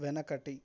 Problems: none marked